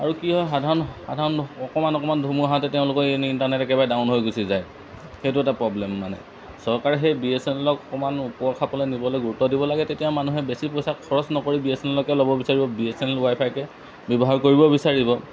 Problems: constant background noise